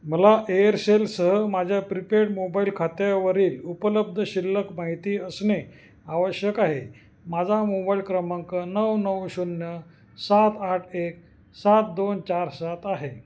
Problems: constant background noise, echo